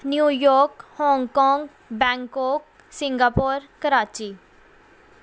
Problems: background sounds at intervals